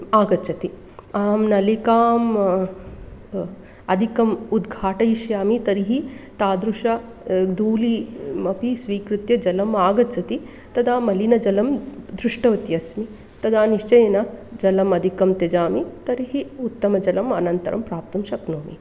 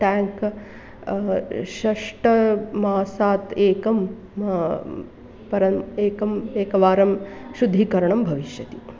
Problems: none marked